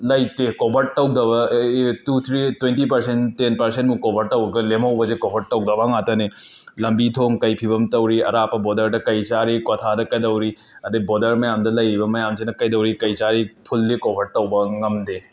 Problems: background sounds at intervals